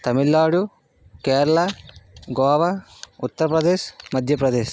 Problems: none marked